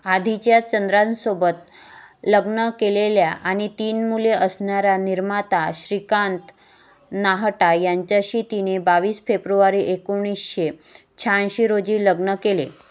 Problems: none marked